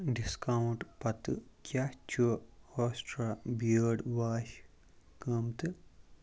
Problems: background sounds at intervals